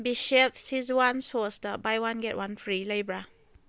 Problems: none marked